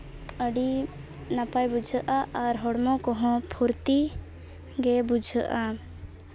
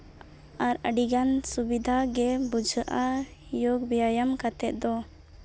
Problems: background sounds at intervals